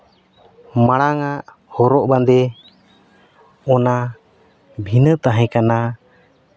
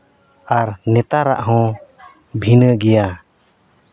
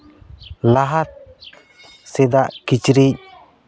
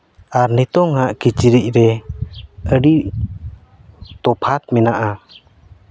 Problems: none marked